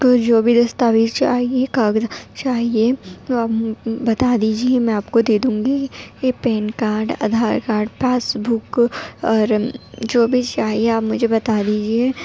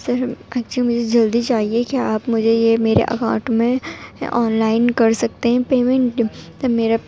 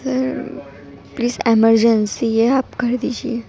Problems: background sounds at intervals, background conversations at intervals, low volume